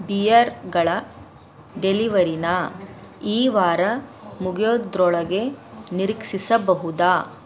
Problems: none marked